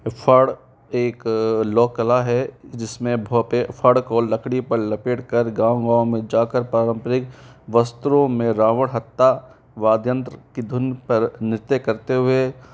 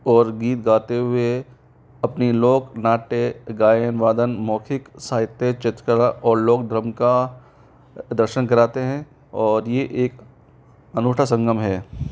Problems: constant background noise